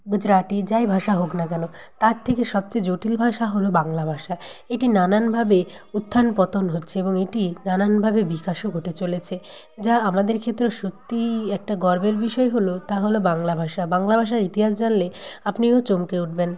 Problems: background conversations at intervals